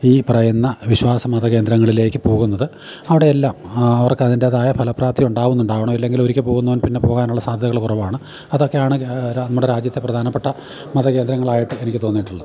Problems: background sounds at intervals